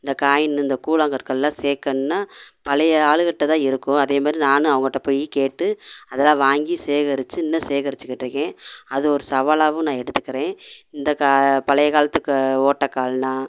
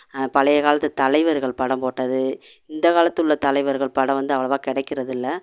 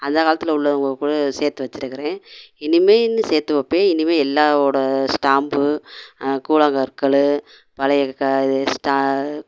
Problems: none marked